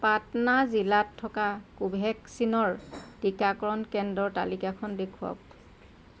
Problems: constant background noise